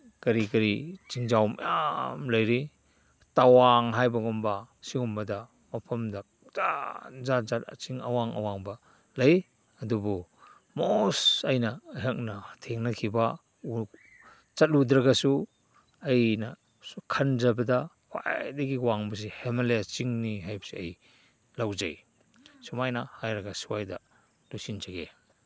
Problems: none marked